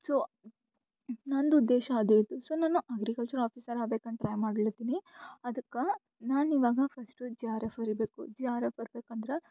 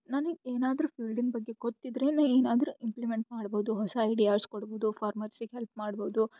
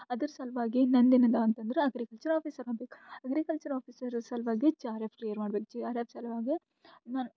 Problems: none marked